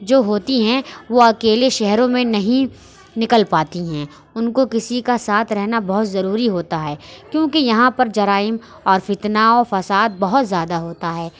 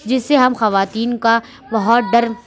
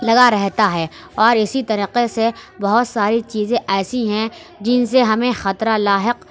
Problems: constant background noise